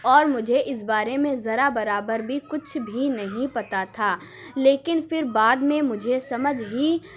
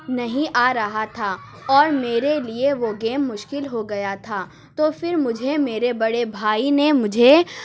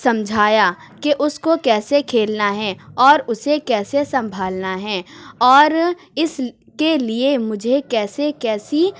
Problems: none marked